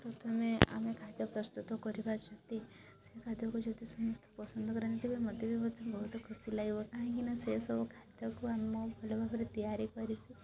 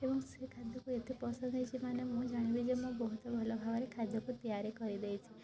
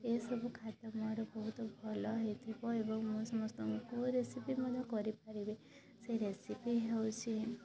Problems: constant background noise, continuous background conversations